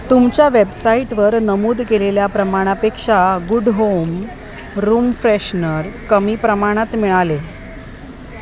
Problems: constant background noise, background conversations at intervals